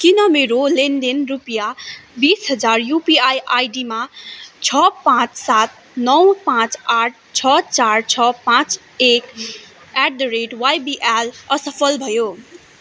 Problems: background conversations at intervals